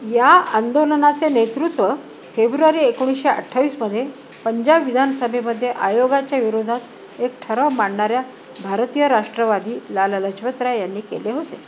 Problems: constant background noise